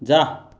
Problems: none marked